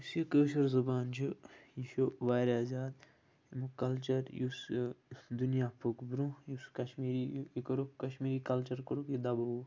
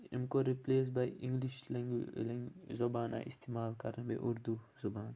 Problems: constant background noise